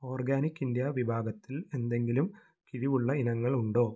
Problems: none marked